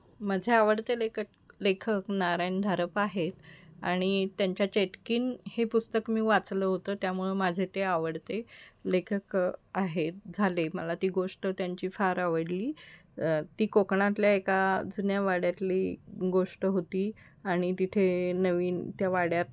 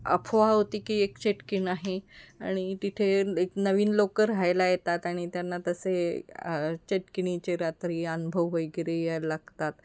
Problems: none marked